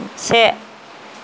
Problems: constant background noise